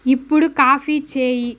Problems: none marked